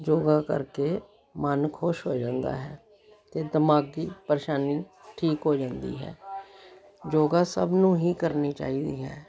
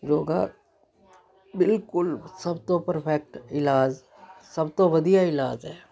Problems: continuous background conversations